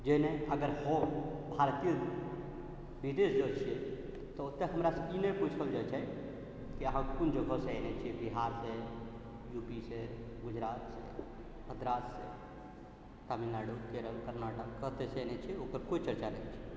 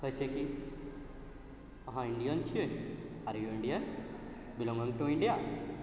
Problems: none marked